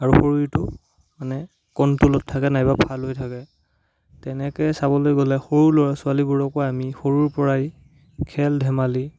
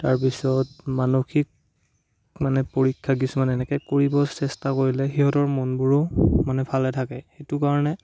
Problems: none marked